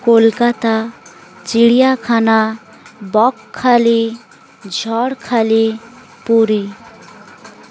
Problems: none marked